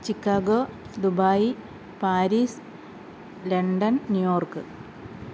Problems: none marked